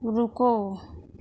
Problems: none marked